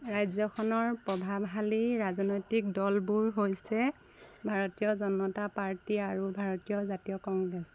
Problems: none marked